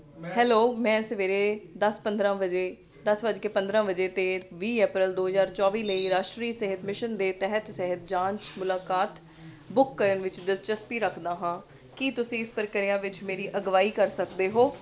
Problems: constant background noise